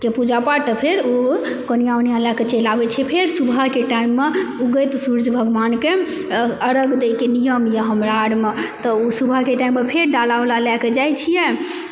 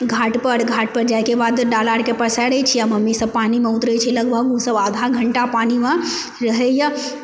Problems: background sounds at intervals